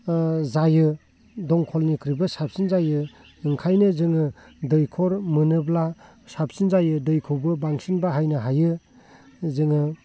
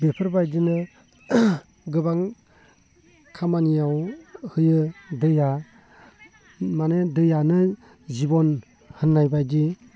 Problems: low volume